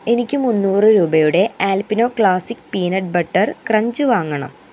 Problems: constant background noise